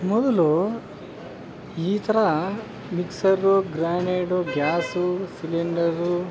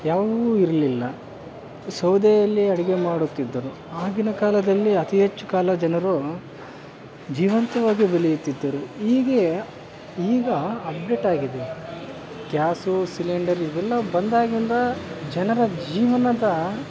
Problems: none marked